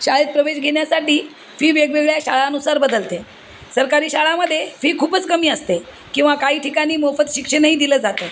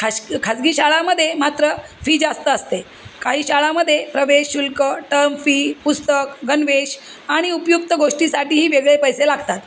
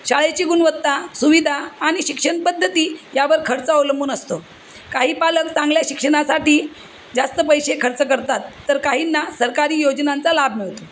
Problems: constant background noise